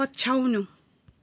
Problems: none marked